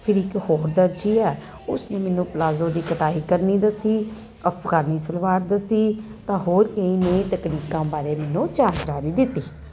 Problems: none marked